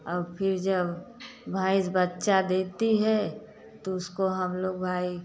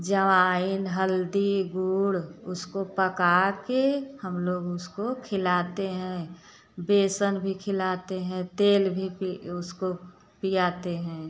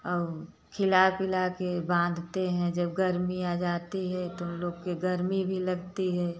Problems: none marked